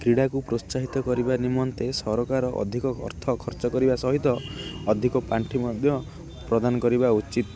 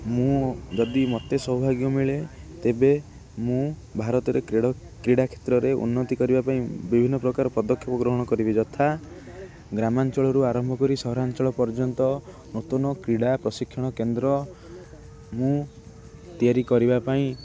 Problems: constant background noise, continuous background conversations